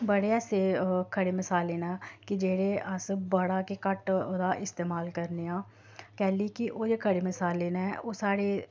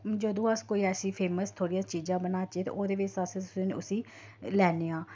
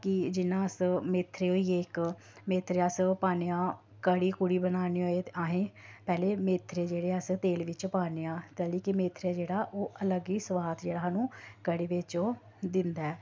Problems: low volume